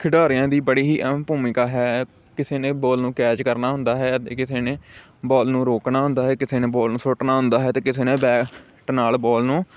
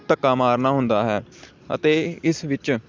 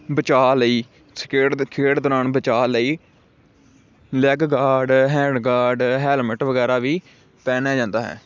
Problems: none marked